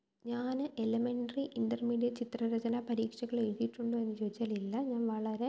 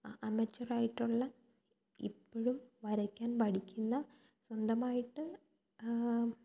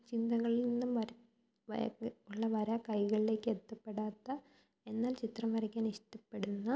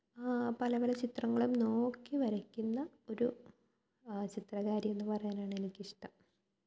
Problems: low volume